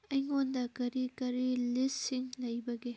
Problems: none marked